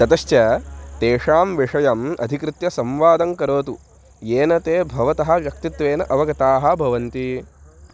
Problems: constant background noise